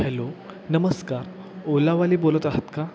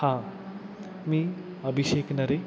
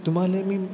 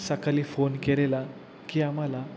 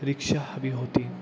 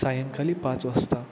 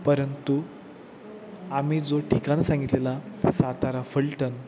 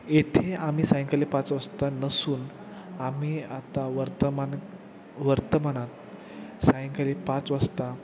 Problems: constant background noise, background conversations at intervals